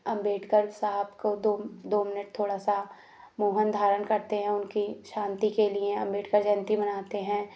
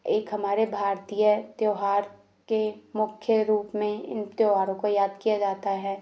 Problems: none marked